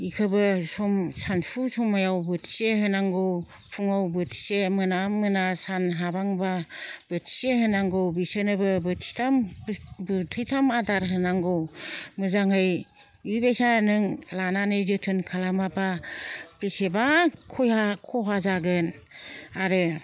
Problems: none marked